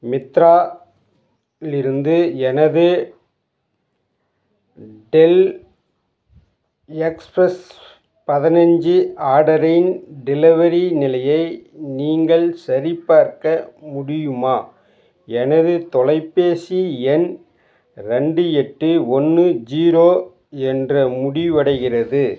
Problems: constant background noise